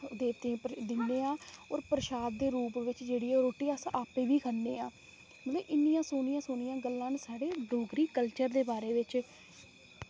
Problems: low volume